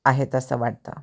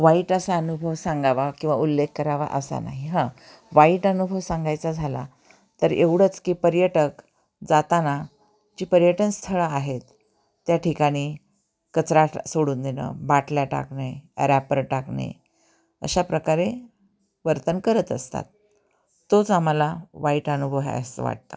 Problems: constant background noise, continuous background conversations